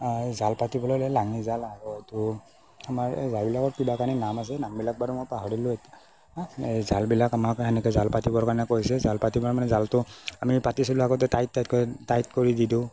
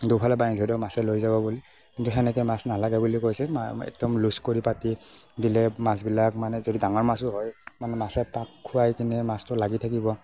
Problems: background sounds at intervals, low volume